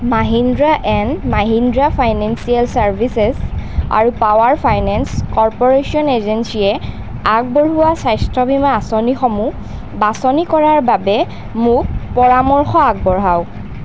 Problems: constant background noise